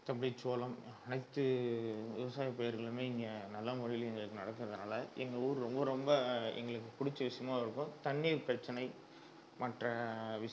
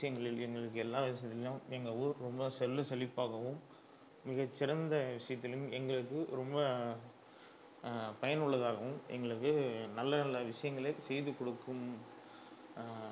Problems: low volume